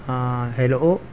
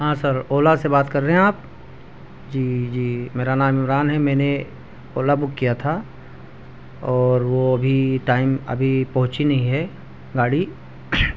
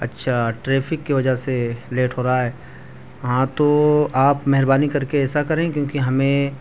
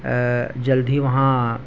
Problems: constant background noise